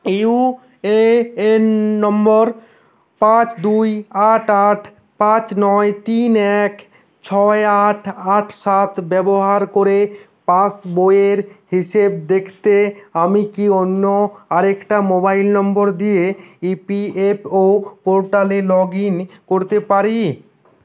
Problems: constant background noise